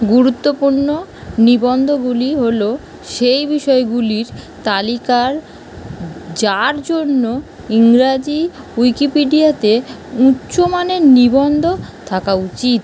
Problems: constant background noise